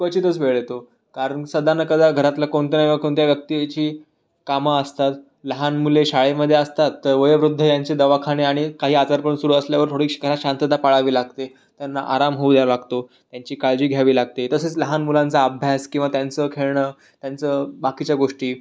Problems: none marked